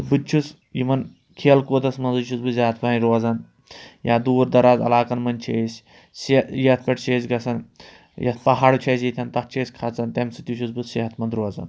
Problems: none marked